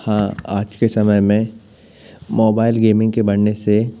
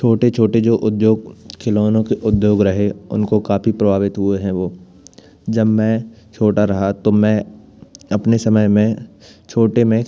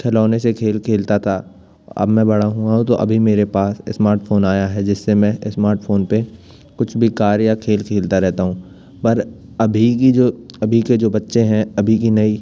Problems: none marked